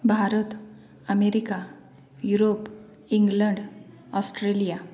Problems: continuous background conversations